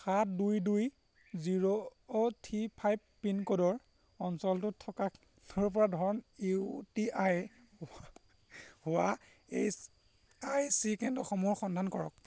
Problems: constant background noise